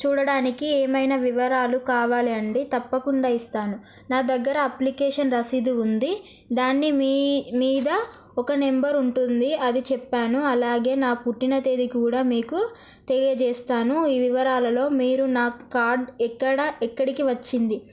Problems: none marked